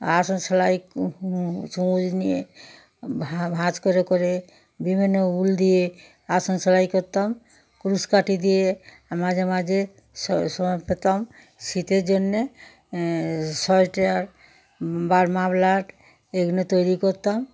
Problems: continuous background conversations